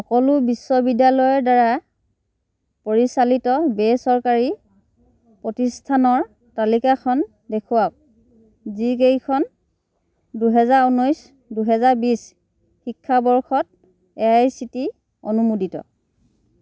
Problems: none marked